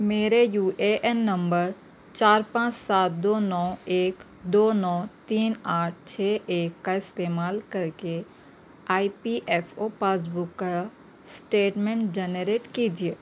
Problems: none marked